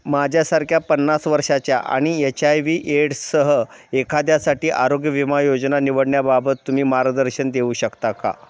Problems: none marked